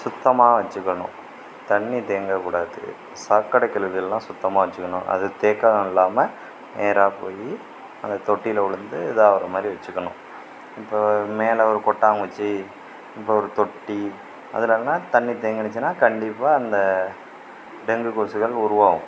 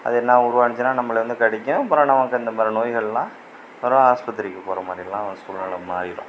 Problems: constant background noise, background conversations at intervals